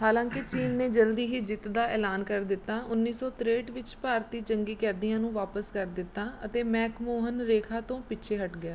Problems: background sounds at intervals